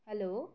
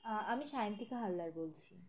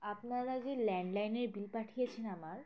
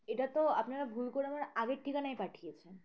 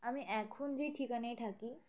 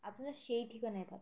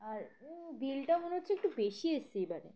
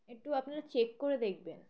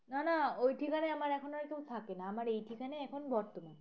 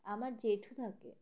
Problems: constant background noise, background conversations at intervals